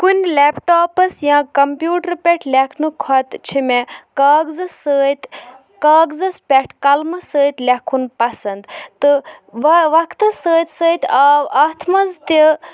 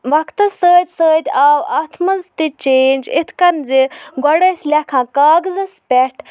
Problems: background sounds at intervals